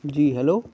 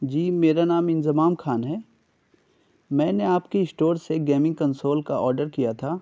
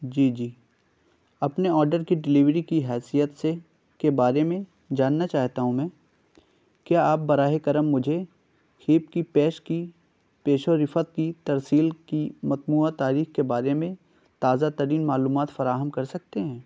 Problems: none marked